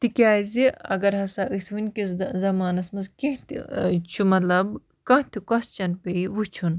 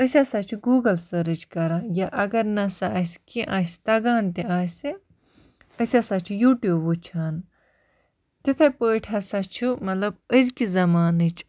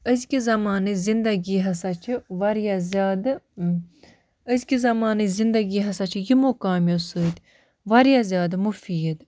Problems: none marked